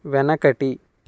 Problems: constant background noise